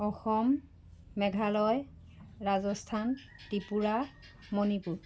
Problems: background sounds at intervals